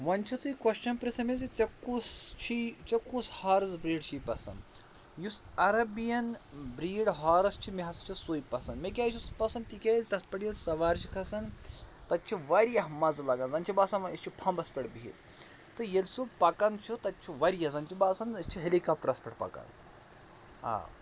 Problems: constant background noise